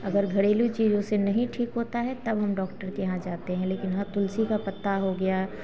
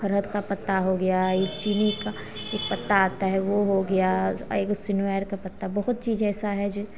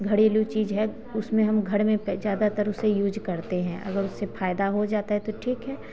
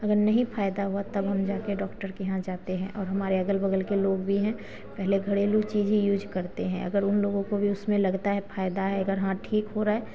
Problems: background sounds at intervals, background conversations at intervals